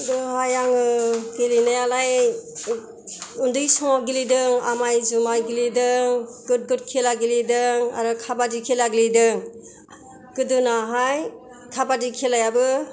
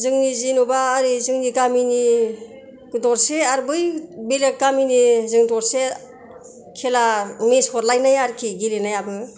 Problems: none marked